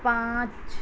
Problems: constant background noise